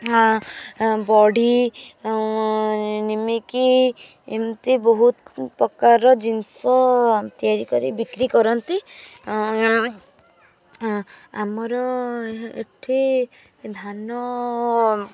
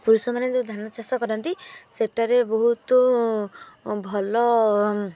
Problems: constant background noise, continuous background conversations